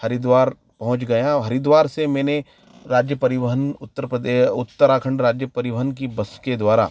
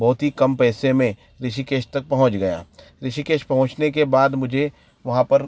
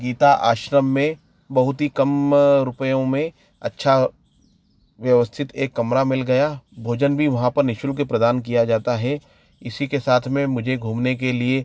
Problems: none marked